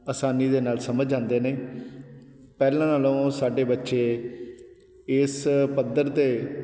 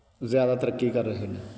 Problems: none marked